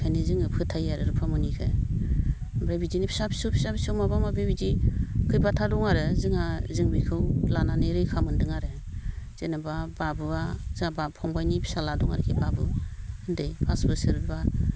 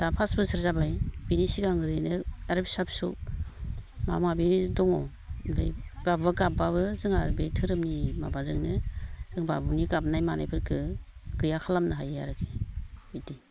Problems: none marked